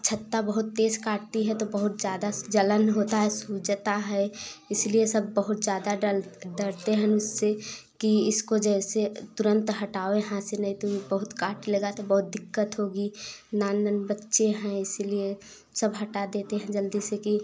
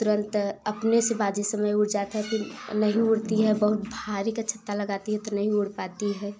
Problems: background sounds at intervals